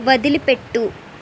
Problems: constant background noise